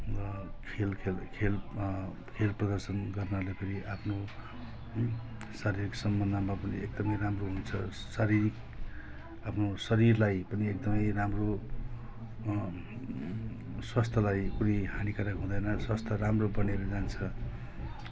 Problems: none marked